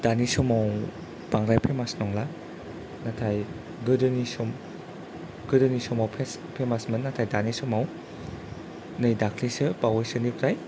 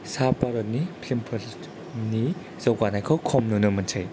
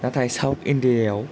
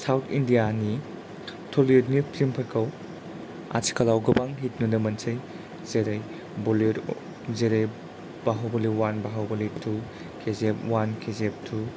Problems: none marked